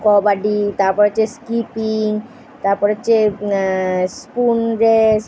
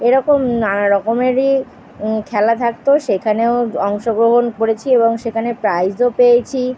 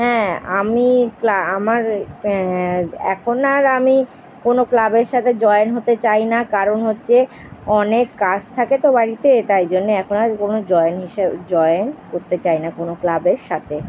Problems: constant background noise